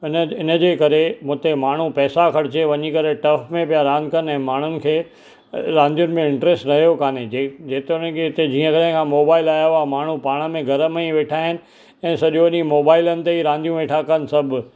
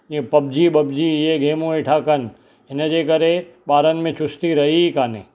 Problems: none marked